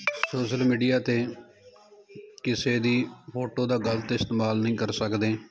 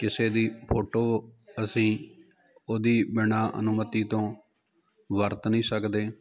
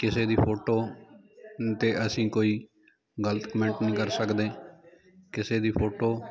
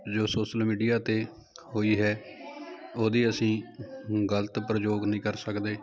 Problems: continuous background conversations